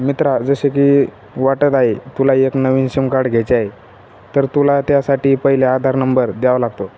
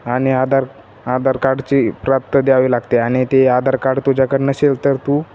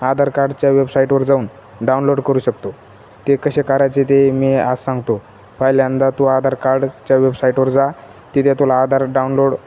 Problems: none marked